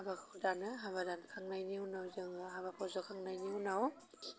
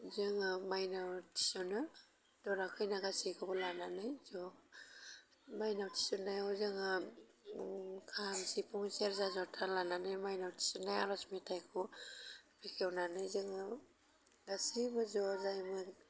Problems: constant background noise